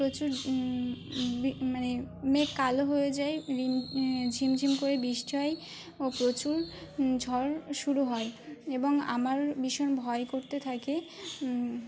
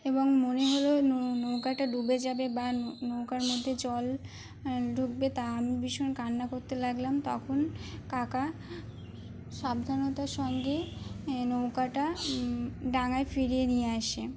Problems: none marked